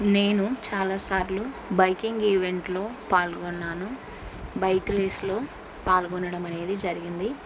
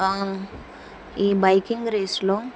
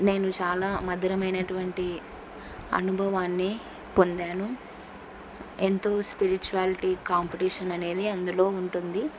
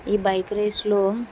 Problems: none marked